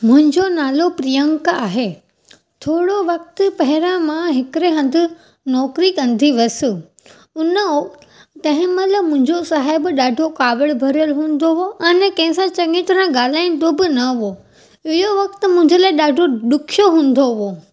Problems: constant background noise